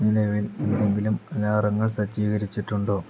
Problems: low volume